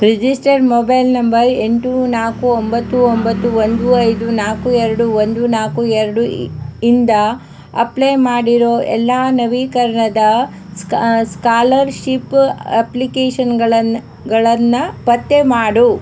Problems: background sounds at intervals